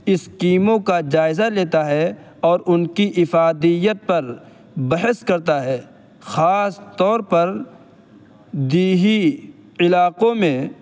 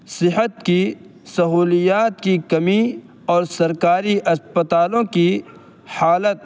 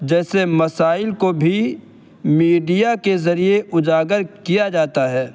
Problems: constant background noise